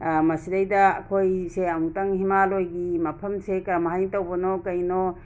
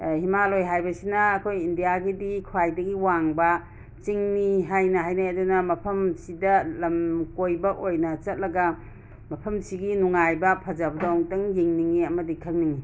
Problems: constant background noise